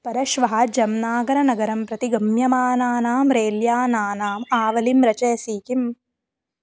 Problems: background sounds at intervals